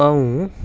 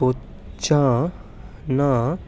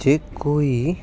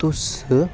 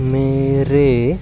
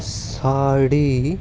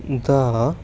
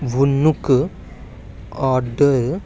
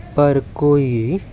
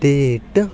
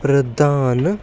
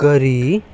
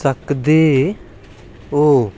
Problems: constant background noise